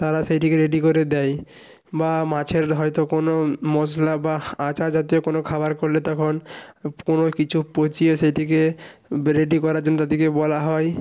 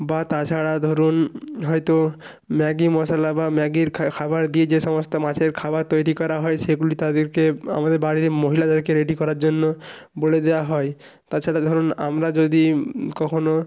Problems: constant background noise